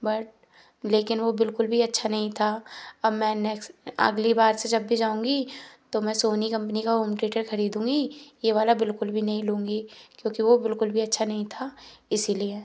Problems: background sounds at intervals